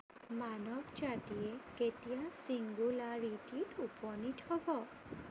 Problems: constant background noise